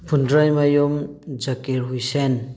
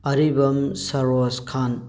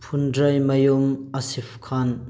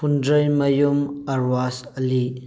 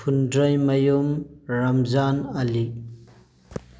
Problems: none marked